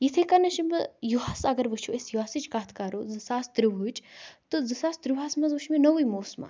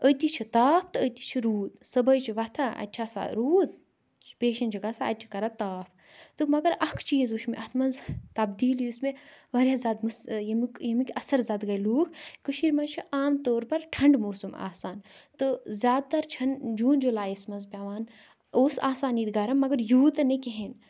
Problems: background sounds at intervals